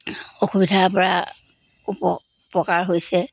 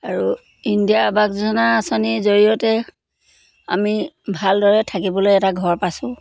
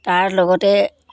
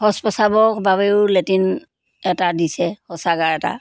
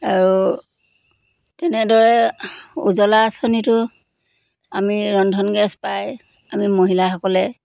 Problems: constant background noise